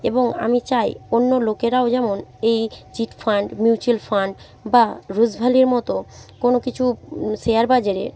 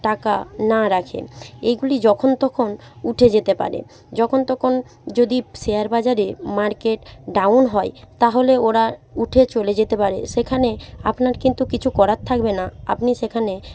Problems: none marked